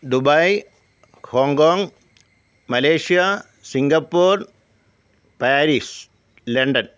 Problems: none marked